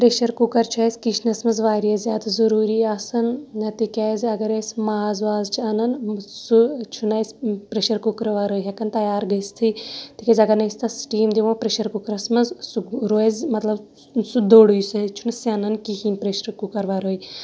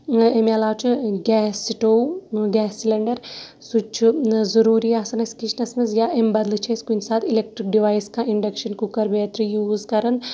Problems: background sounds at intervals